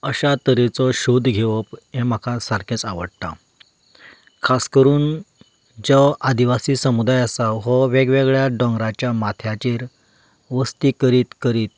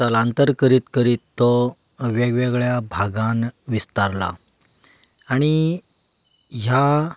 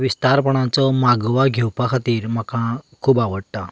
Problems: background sounds at intervals